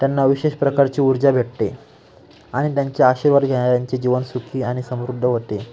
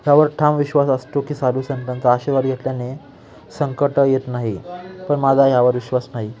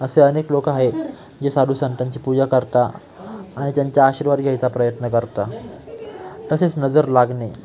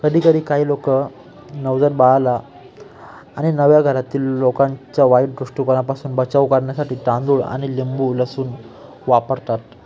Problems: constant background noise, continuous background conversations